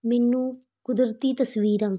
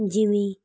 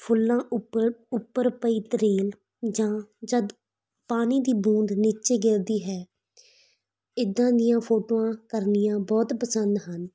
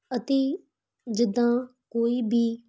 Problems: background sounds at intervals